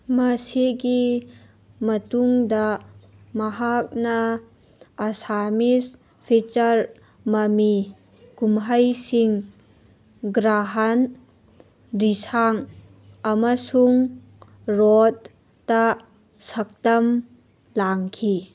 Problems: none marked